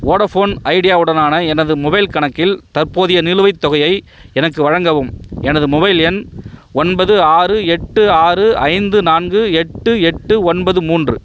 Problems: background sounds at intervals